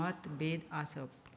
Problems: none marked